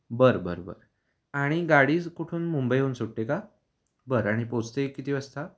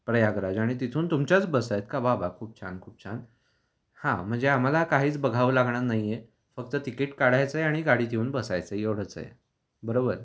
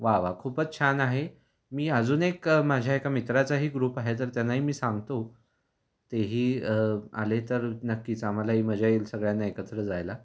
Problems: none marked